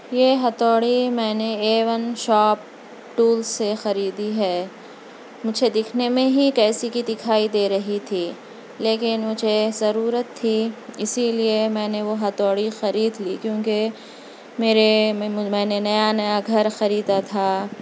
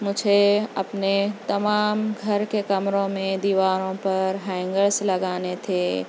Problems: constant background noise